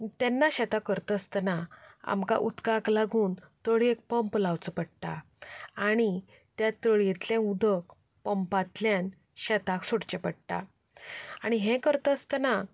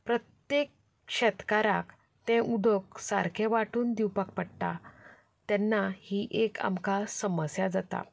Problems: background conversations at intervals